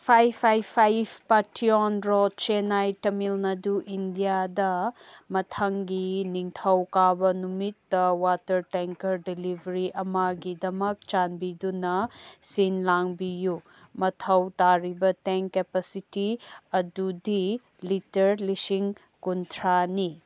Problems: none marked